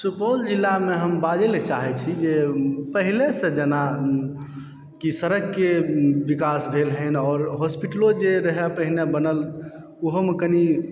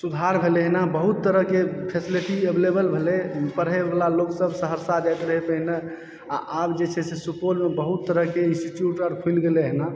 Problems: background sounds at intervals